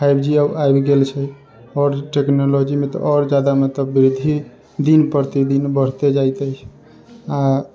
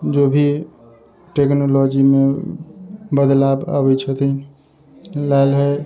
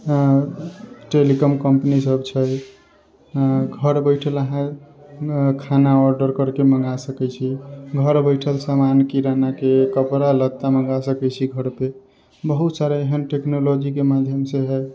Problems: constant background noise